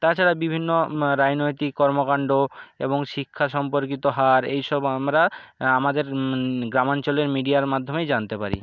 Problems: none marked